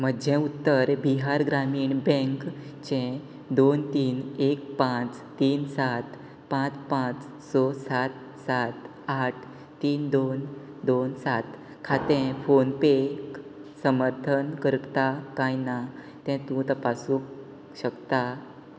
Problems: constant background noise